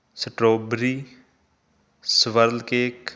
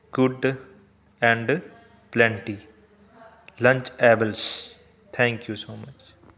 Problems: constant background noise